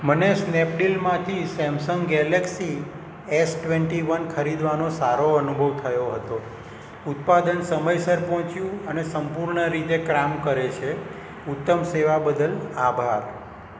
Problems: none marked